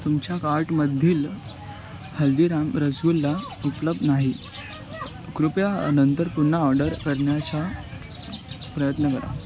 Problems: constant background noise